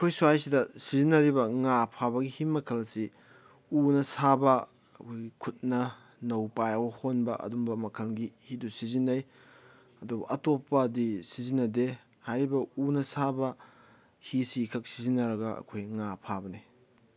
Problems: none marked